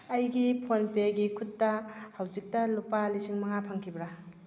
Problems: low volume